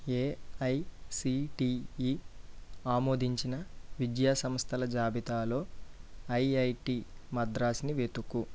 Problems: low volume